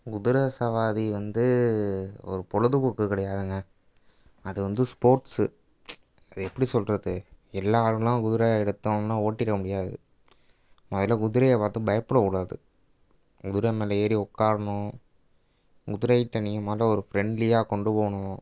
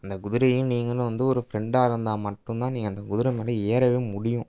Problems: background sounds at intervals